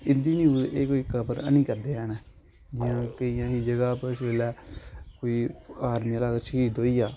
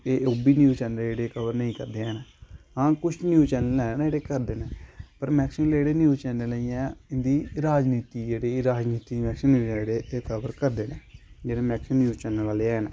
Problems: constant background noise